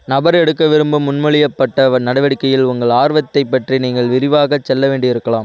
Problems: constant background noise